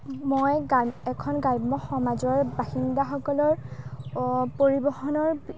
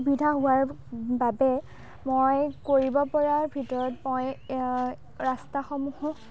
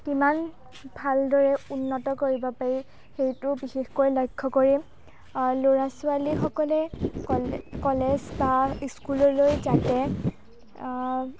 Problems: background conversations at intervals